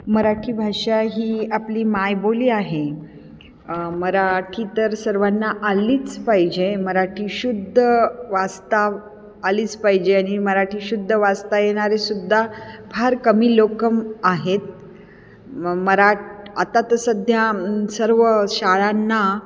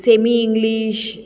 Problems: constant background noise, echo